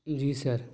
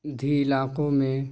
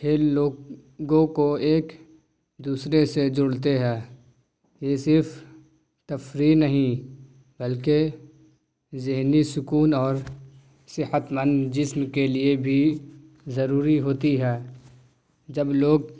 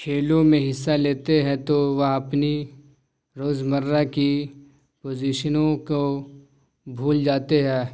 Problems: none marked